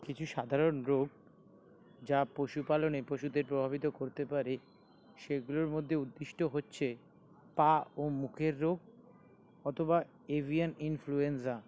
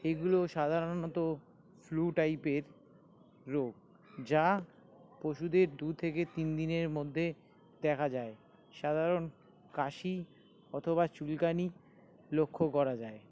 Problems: none marked